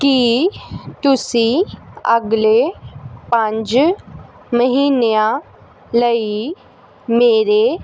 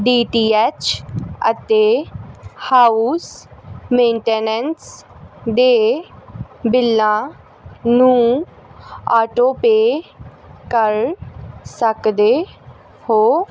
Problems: constant background noise